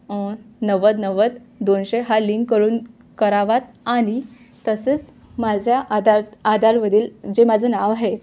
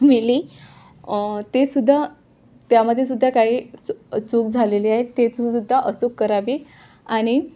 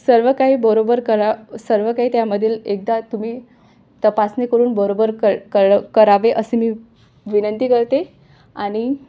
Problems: background sounds at intervals, background conversations at intervals